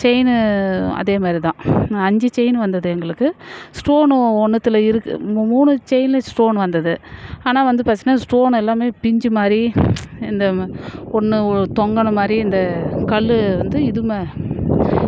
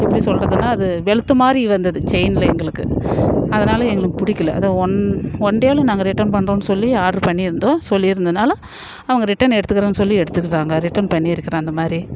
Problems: background sounds at intervals